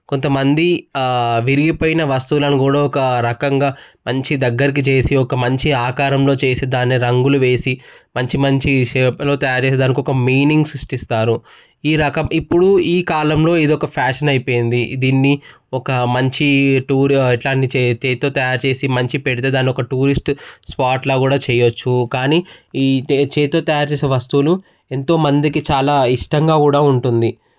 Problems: background conversations at intervals